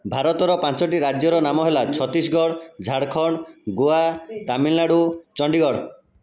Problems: background conversations at intervals